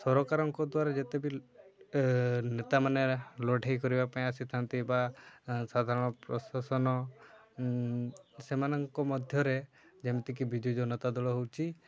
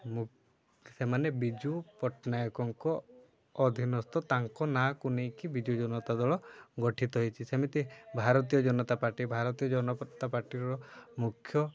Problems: constant background noise, continuous background conversations